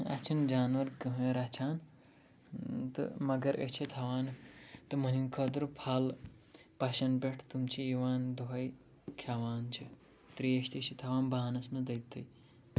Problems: low volume